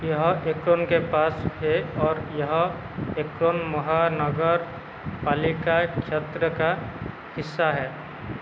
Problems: none marked